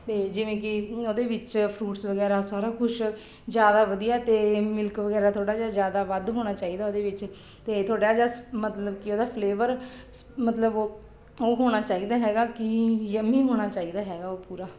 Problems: background sounds at intervals